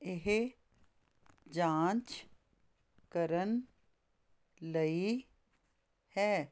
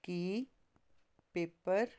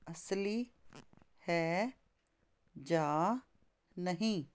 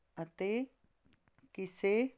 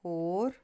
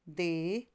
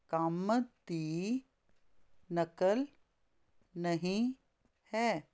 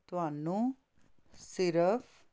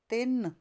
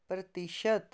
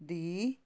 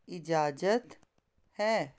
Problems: constant background noise